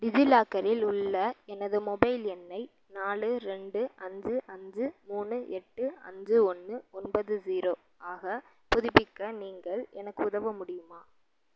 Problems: low volume